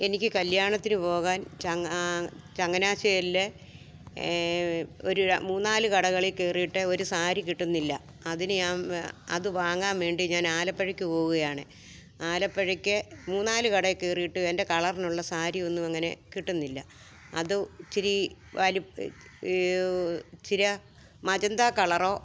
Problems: background conversations at intervals